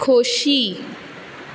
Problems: none marked